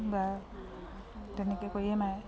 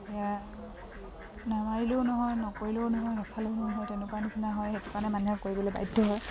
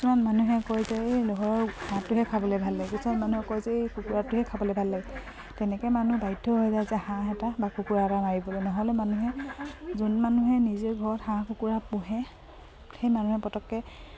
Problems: background sounds at intervals